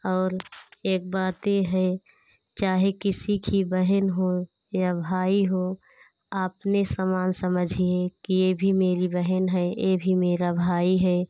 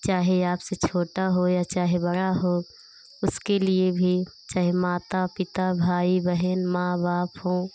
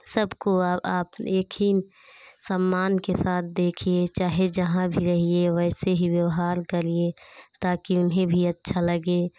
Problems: constant background noise